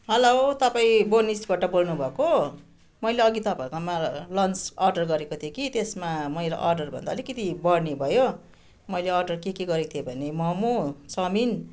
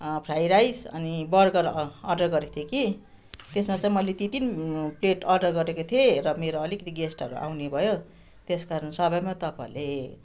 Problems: constant background noise